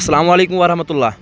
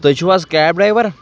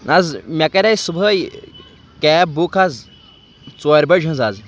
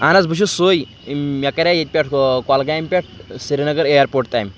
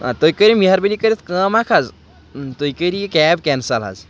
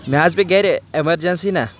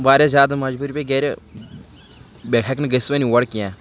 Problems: none marked